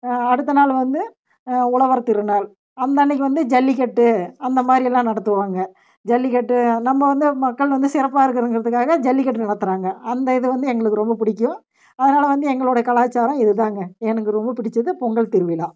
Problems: none marked